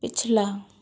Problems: constant background noise